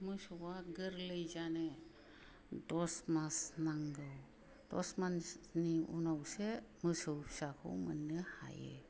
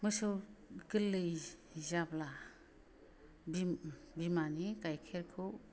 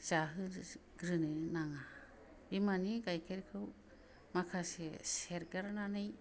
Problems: low volume